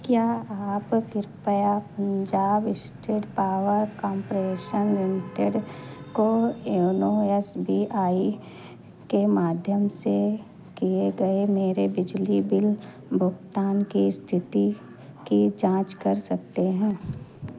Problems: constant background noise